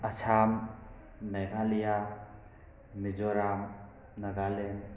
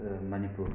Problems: constant background noise